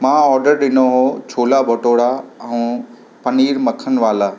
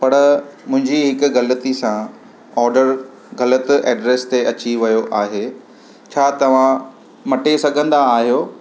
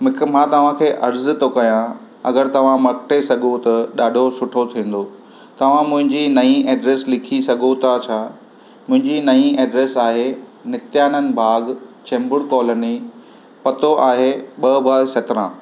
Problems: constant background noise